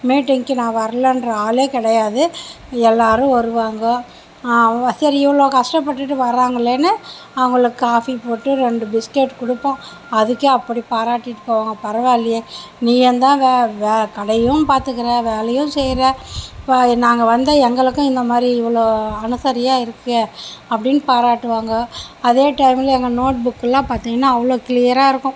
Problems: constant background noise